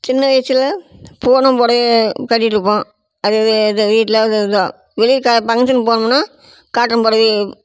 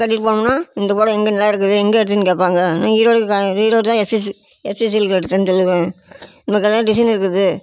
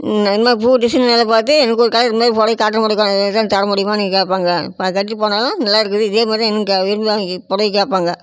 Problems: constant background noise